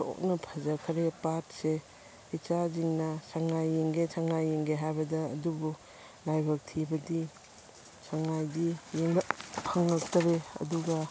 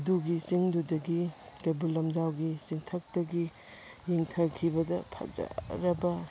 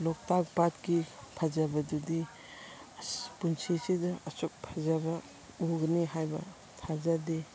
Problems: constant background noise